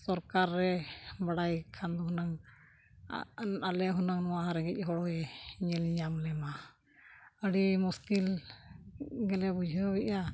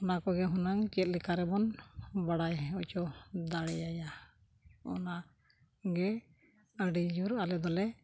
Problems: background sounds at intervals